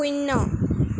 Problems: constant background noise